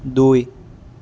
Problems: none marked